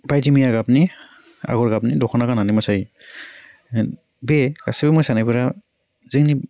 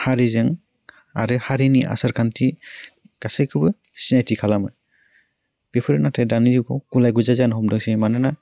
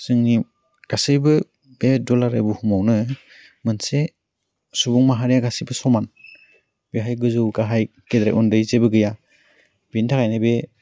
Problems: low volume